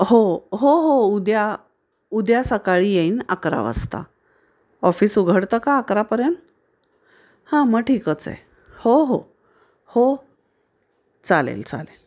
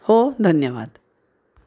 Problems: background sounds at intervals